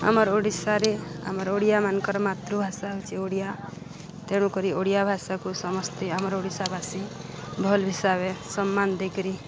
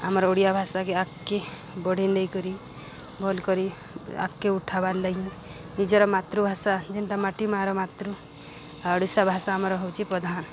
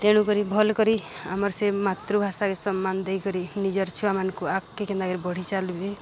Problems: constant background noise